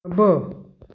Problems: background sounds at intervals